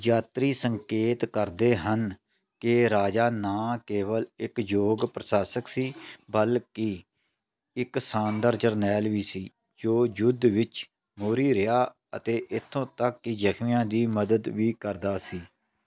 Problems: none marked